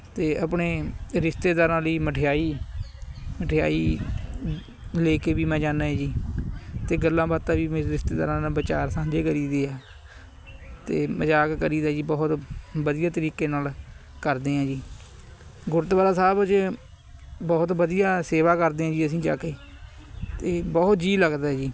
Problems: constant background noise, background conversations at intervals